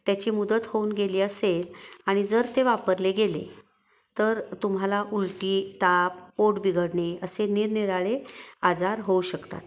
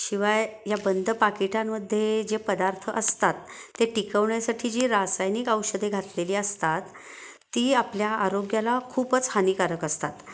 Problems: none marked